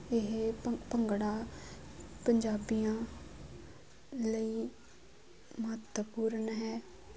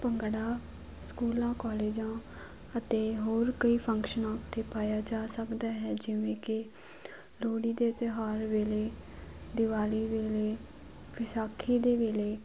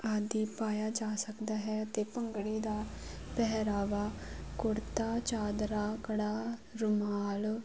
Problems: none marked